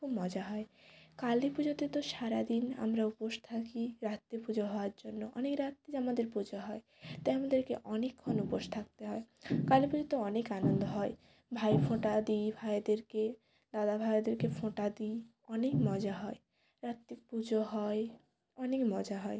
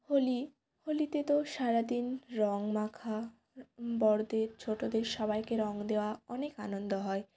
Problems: constant background noise